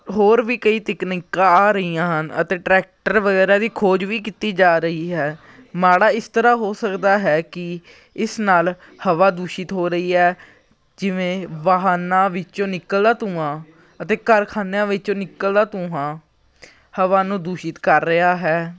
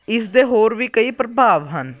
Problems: continuous background conversations